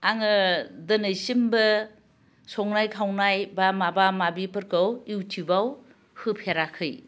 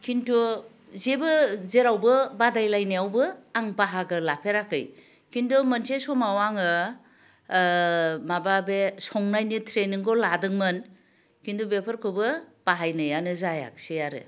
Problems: low volume